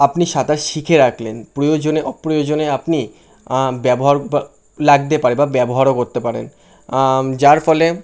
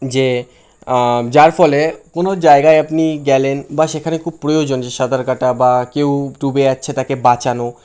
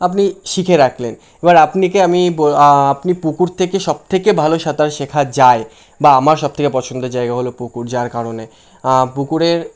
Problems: constant background noise